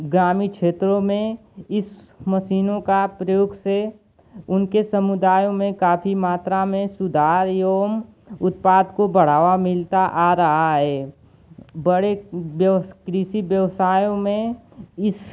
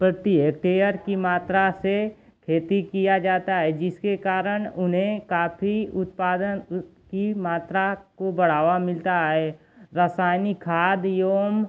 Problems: constant background noise